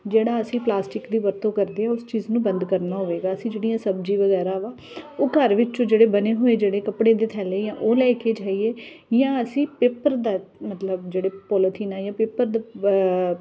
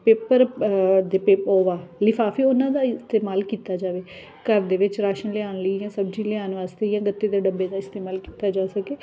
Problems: none marked